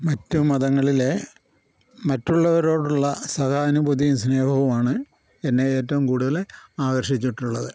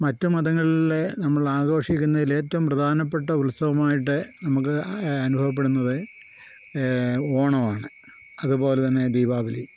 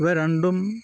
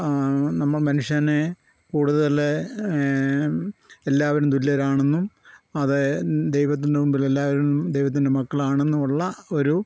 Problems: constant background noise